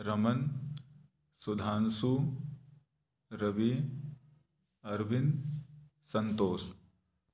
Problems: background sounds at intervals